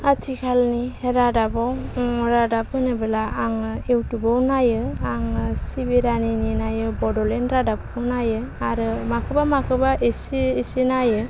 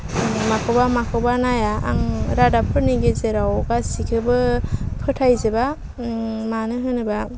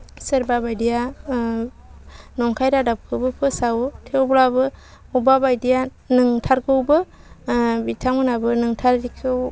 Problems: none marked